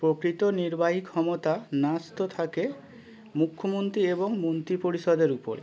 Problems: none marked